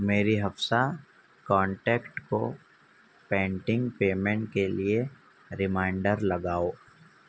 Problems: constant background noise, low volume